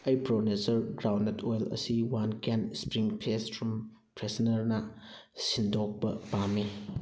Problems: none marked